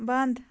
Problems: background sounds at intervals